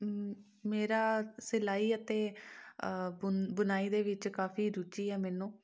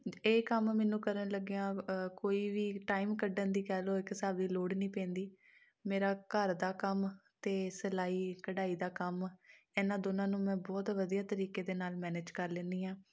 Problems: none marked